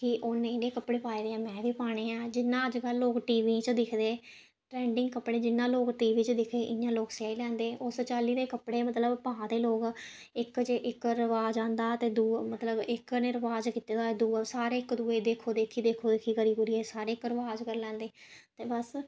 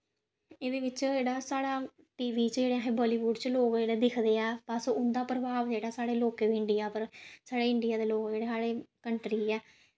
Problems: none marked